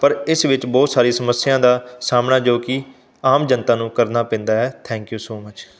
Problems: background sounds at intervals